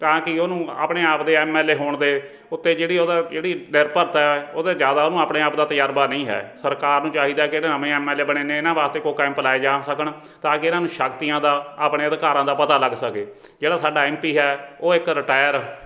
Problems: background sounds at intervals, background conversations at intervals